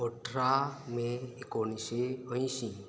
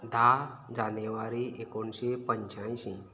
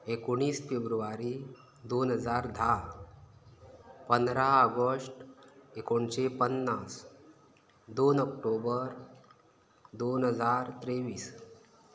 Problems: none marked